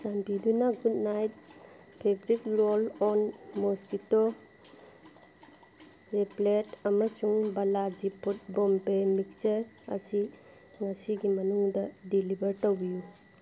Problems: background sounds at intervals